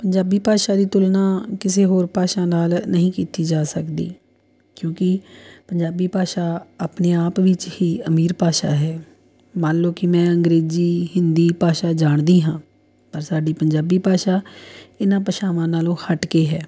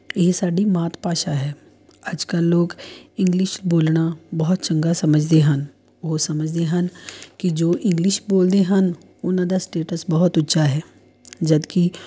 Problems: none marked